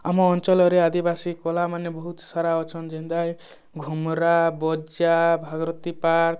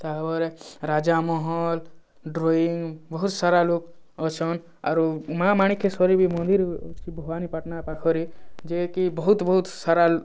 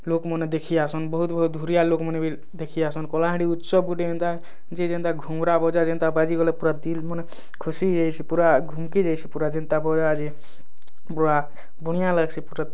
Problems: background sounds at intervals